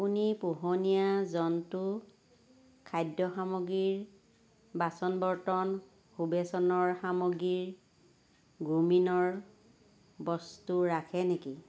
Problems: constant background noise